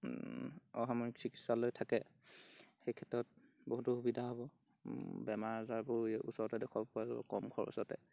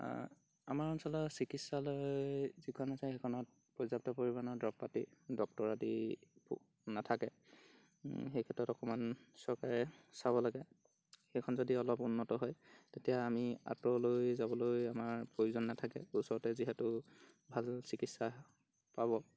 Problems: background sounds at intervals